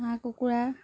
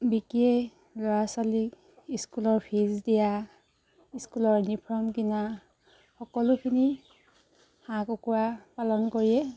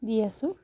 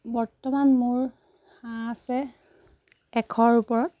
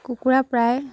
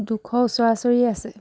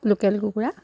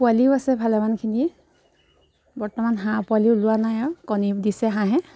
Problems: background sounds at intervals